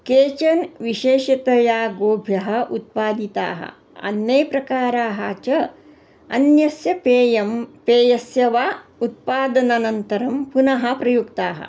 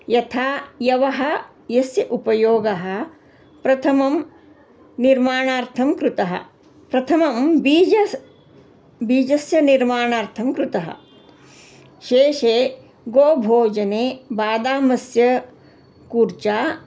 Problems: constant background noise